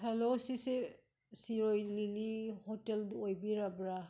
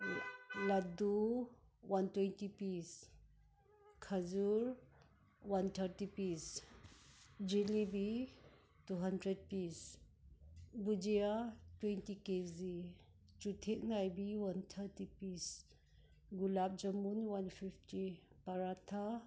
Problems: none marked